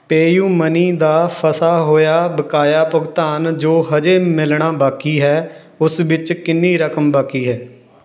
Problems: background sounds at intervals